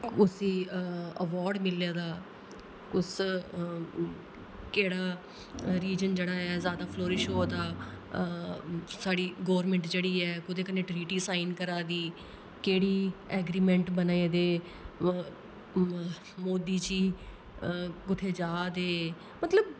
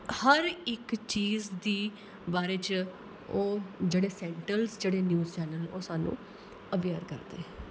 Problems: constant background noise